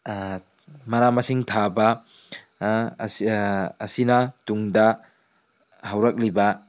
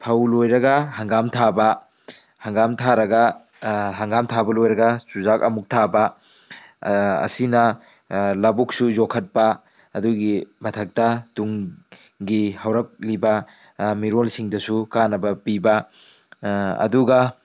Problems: background sounds at intervals, low volume